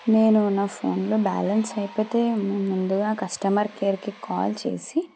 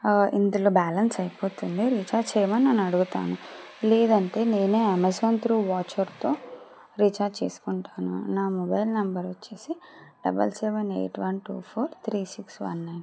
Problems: background sounds at intervals